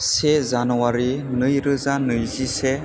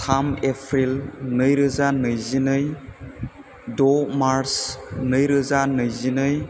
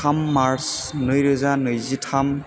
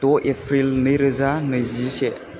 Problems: constant background noise